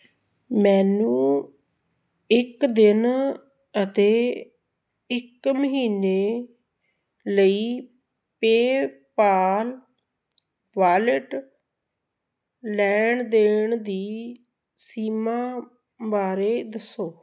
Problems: none marked